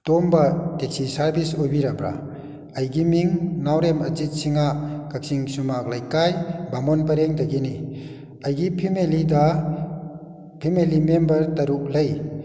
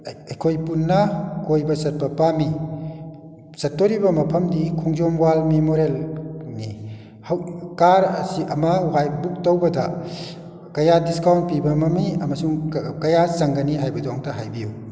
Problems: echo